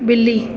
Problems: constant background noise